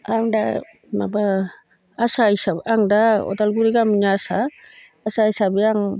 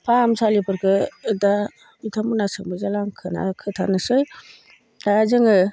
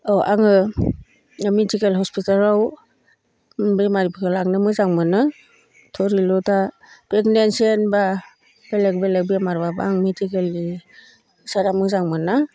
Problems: none marked